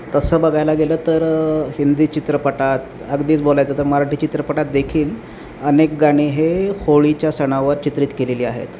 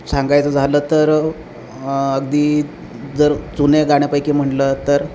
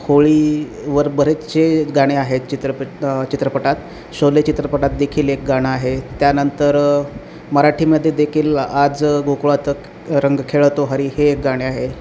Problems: none marked